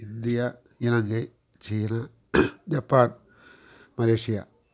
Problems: constant background noise